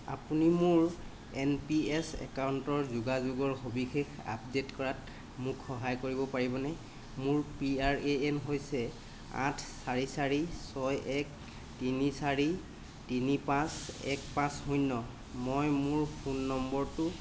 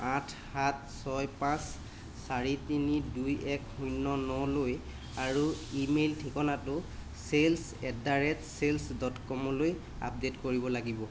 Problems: constant background noise